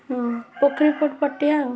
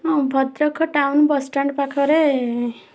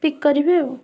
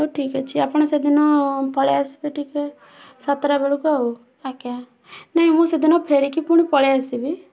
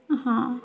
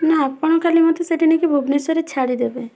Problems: constant background noise, continuous background conversations